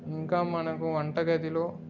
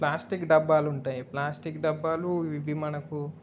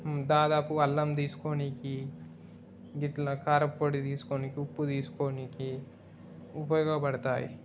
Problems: background sounds at intervals